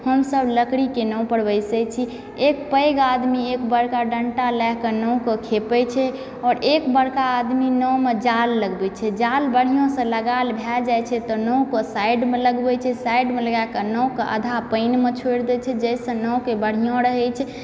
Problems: background sounds at intervals, background conversations at intervals